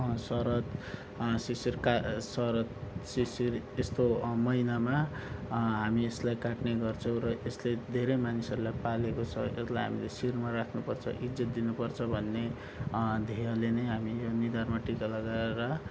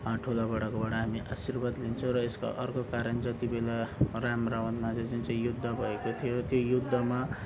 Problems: background sounds at intervals